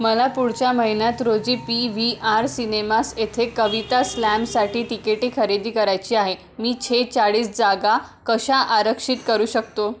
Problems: constant background noise, background conversations at intervals